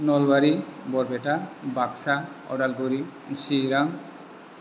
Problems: constant background noise